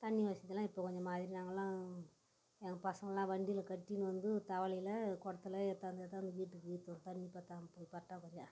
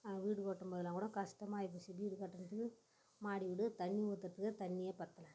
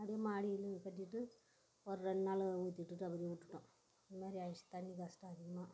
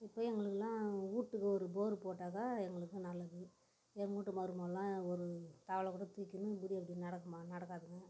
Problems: background sounds at intervals